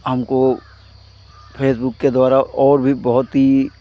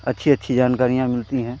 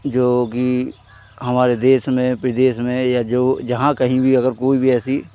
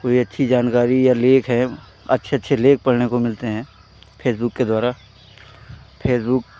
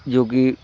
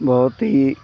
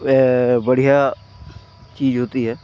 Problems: constant background noise